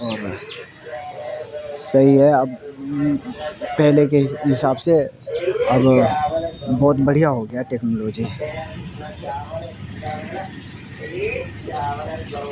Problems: constant background noise, background conversations at intervals